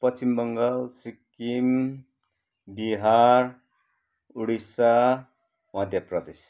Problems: background sounds at intervals